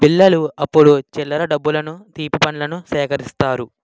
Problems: background sounds at intervals